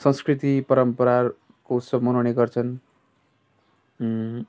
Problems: constant background noise